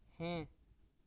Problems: low volume